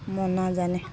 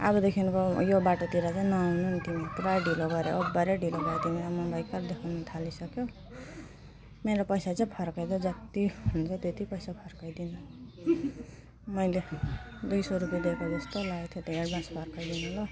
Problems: background sounds at intervals